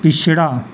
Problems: none marked